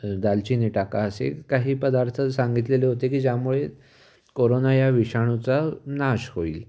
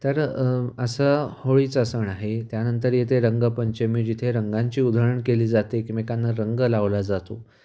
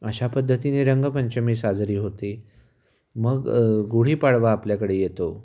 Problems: background sounds at intervals